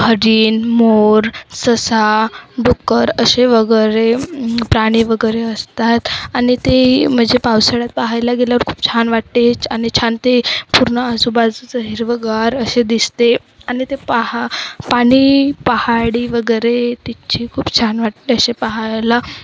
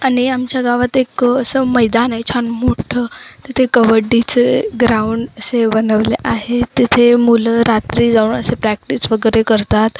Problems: constant background noise